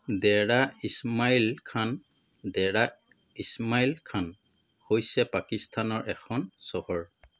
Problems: constant background noise